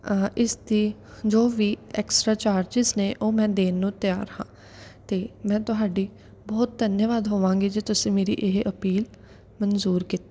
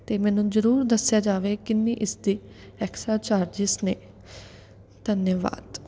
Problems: none marked